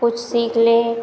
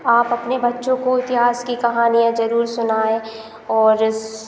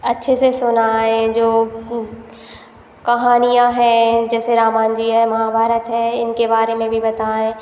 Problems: constant background noise